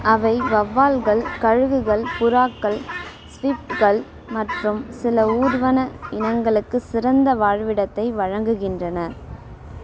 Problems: constant background noise